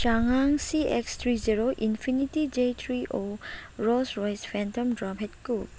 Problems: constant background noise